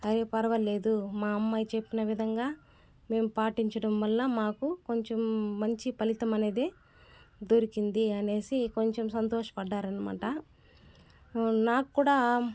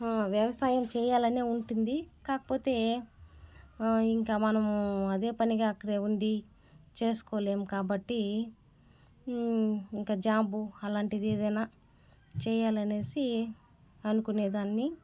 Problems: background sounds at intervals